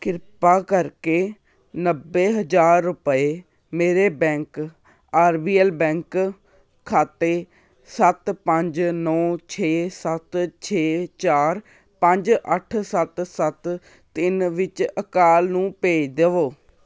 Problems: none marked